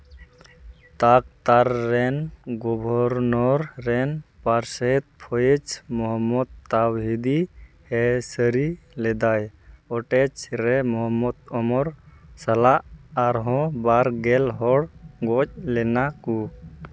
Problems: background sounds at intervals